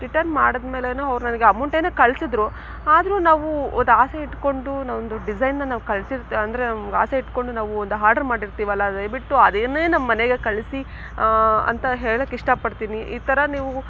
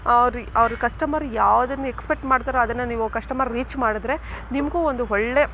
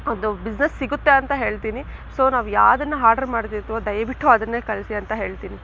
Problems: background sounds at intervals